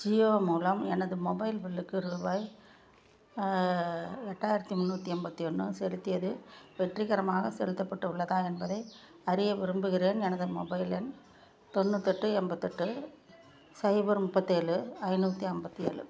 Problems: low volume